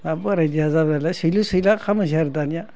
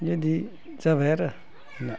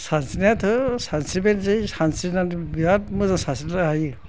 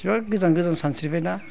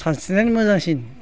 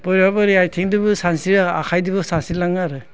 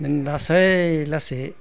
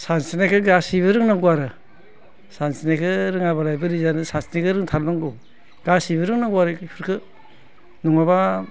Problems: constant background noise